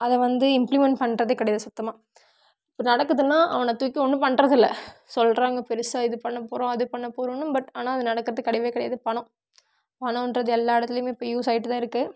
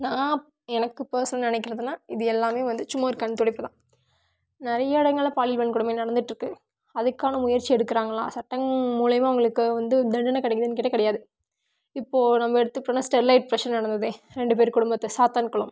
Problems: none marked